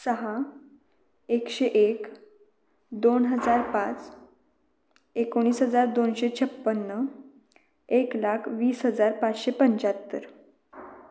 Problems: none marked